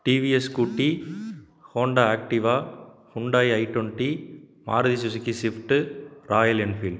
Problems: background sounds at intervals